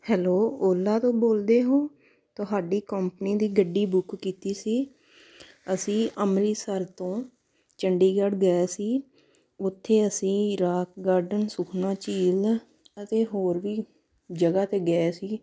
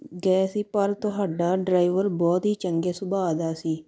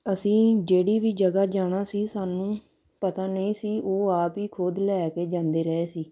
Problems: background sounds at intervals